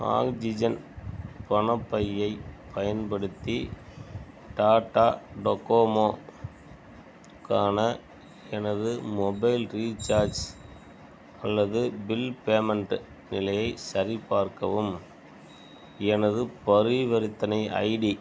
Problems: background sounds at intervals